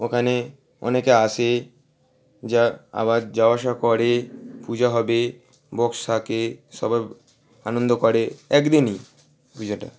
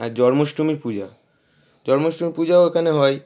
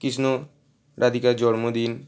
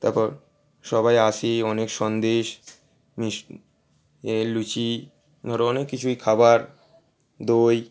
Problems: constant background noise